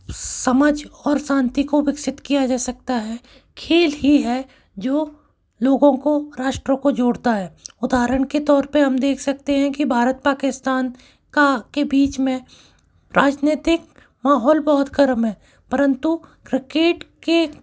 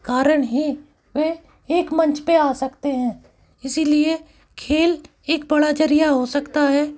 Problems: background sounds at intervals